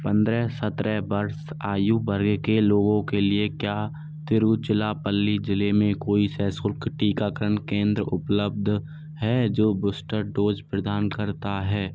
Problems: constant background noise